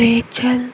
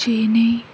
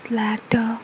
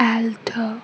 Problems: none marked